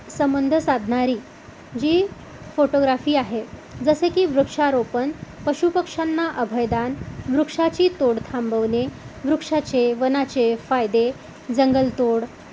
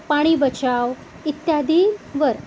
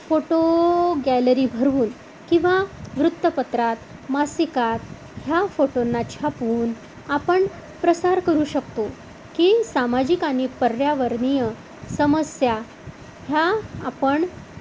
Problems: none marked